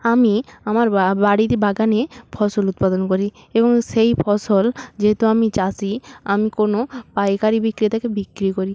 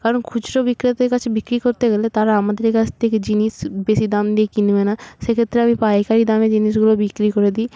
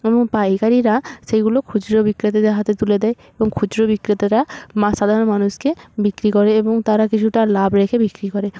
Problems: none marked